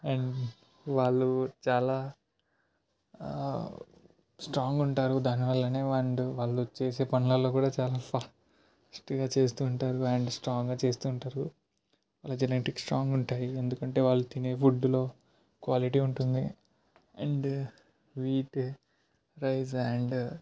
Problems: background conversations at intervals, low volume